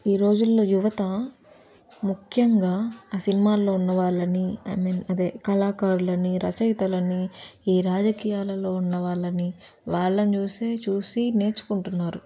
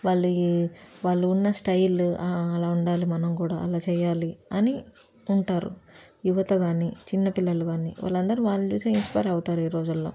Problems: none marked